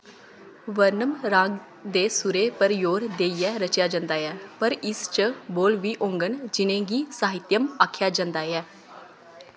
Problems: constant background noise, echo